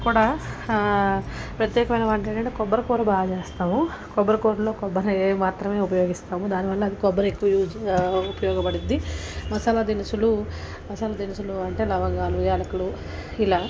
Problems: constant background noise, background conversations at intervals